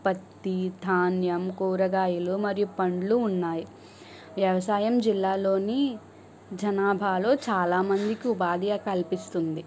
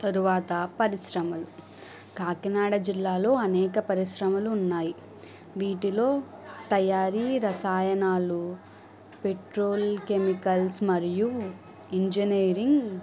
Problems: background sounds at intervals